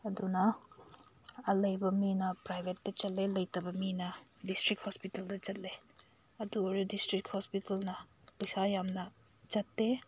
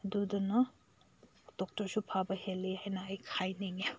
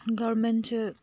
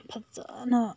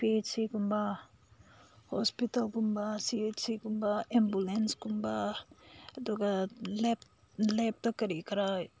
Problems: none marked